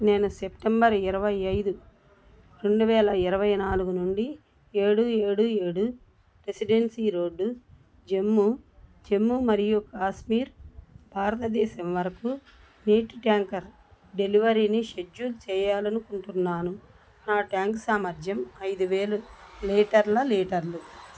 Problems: none marked